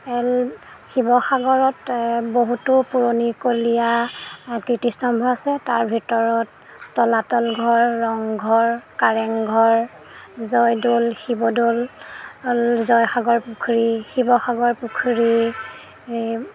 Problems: constant background noise